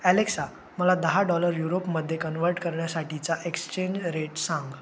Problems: constant background noise